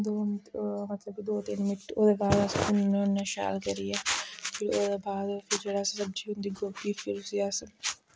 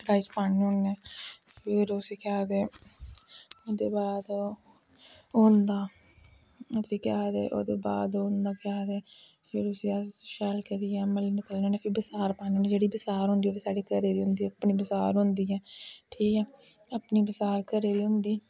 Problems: background sounds at intervals, low volume